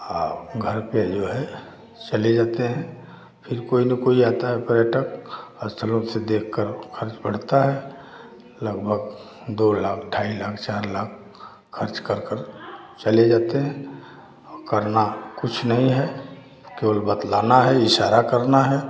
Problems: background sounds at intervals